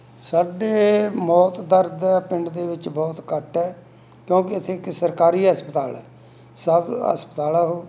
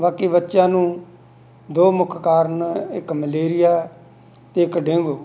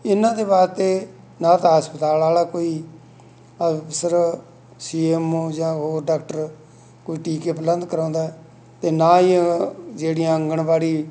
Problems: none marked